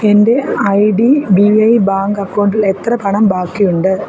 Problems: constant background noise